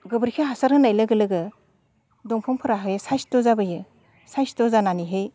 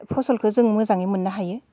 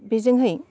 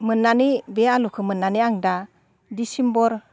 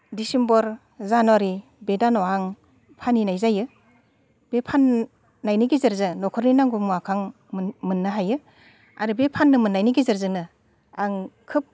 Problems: constant background noise